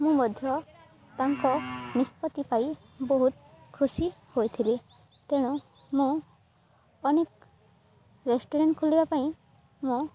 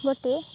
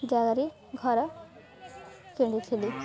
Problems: constant background noise